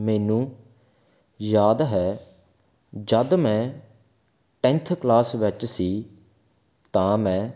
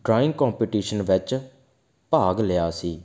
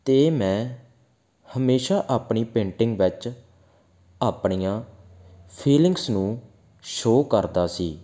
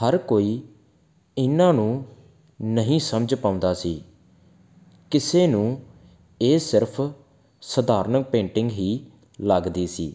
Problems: background sounds at intervals